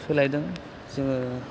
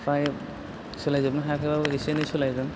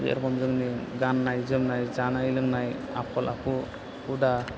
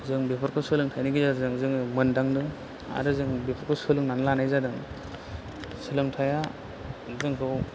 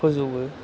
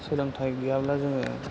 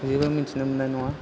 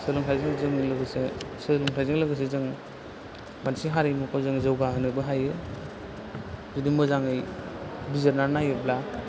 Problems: constant background noise